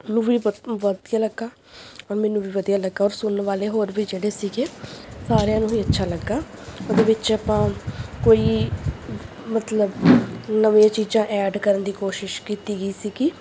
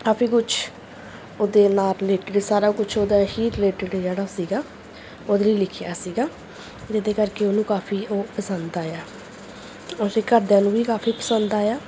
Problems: background sounds at intervals